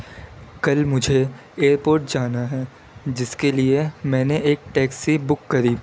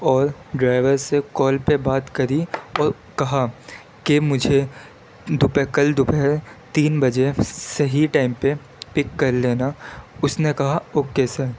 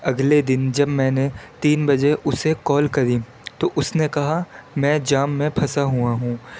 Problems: constant background noise